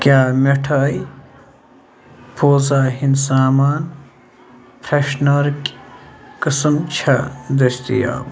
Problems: constant background noise